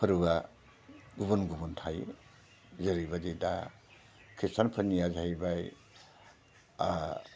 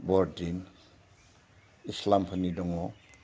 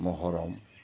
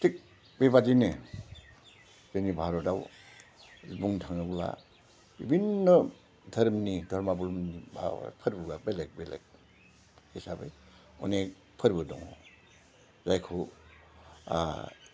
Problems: low volume